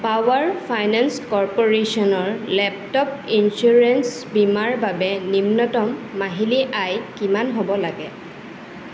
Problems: constant background noise